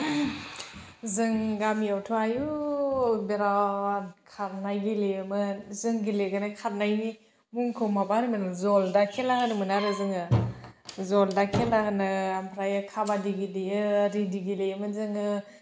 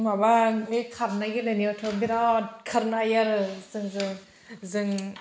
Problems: none marked